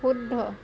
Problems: none marked